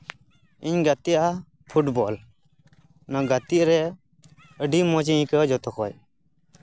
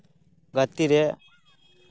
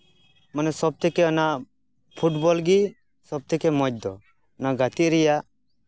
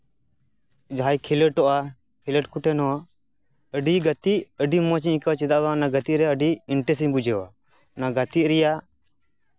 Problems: none marked